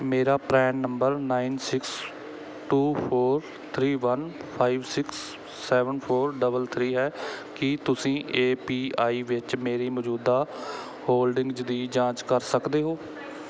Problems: background sounds at intervals